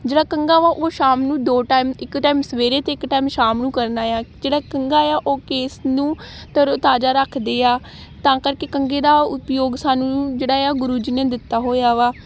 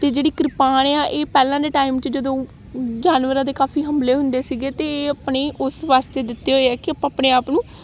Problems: constant background noise